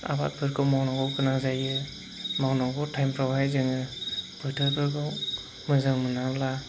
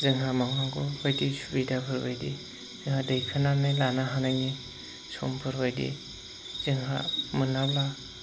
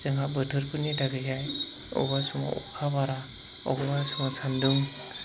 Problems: constant background noise